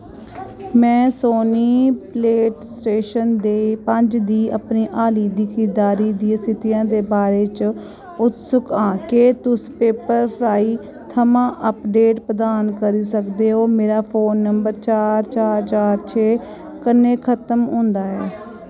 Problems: constant background noise